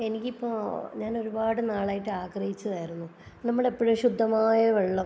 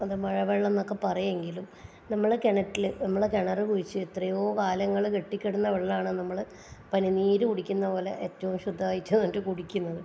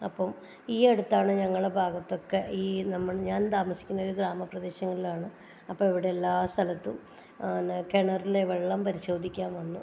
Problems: none marked